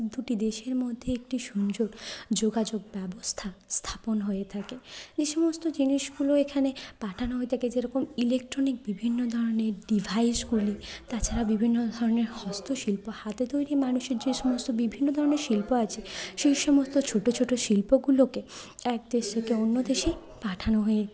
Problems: none marked